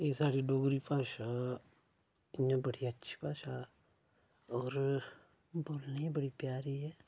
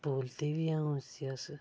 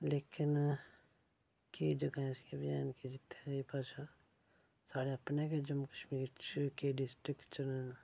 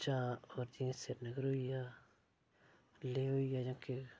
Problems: low volume